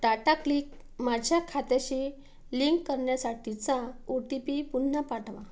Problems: none marked